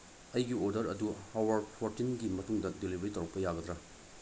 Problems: low volume